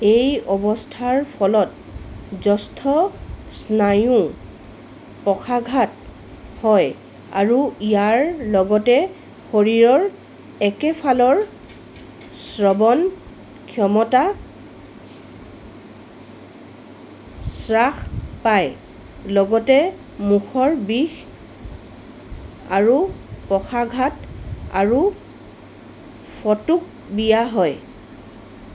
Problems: constant background noise